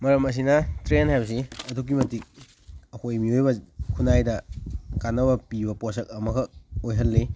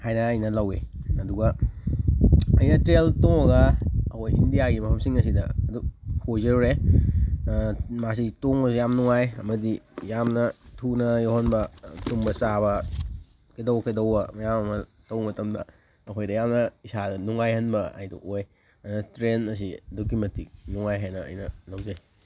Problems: background sounds at intervals